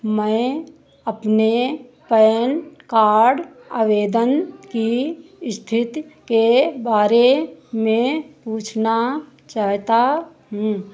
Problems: none marked